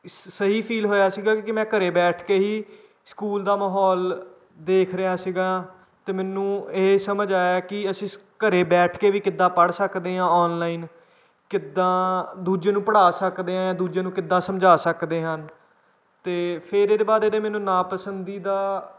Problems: none marked